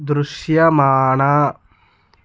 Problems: none marked